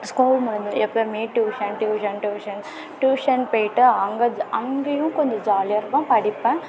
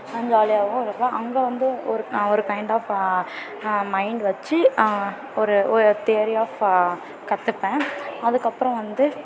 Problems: continuous background conversations